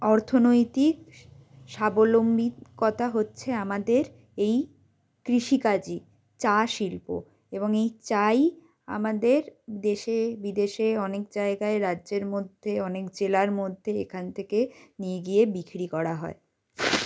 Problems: none marked